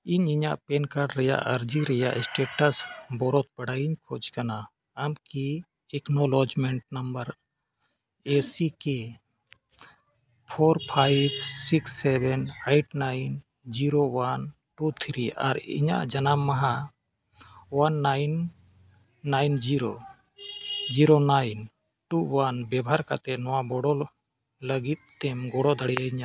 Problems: background sounds at intervals